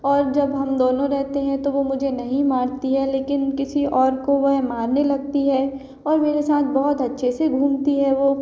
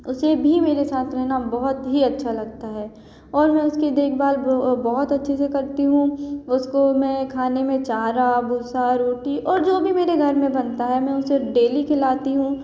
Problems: none marked